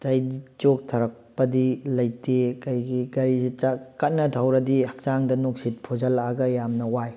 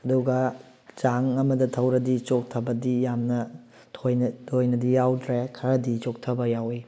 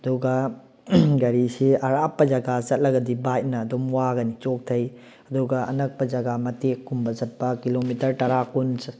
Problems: none marked